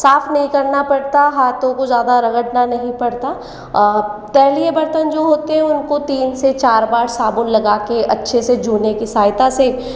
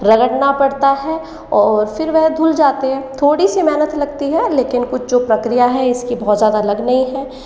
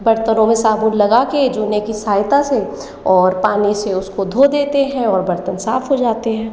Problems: echo